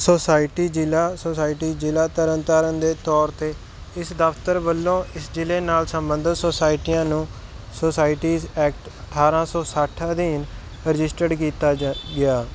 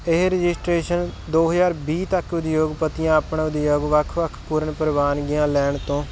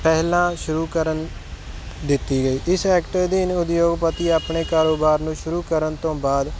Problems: constant background noise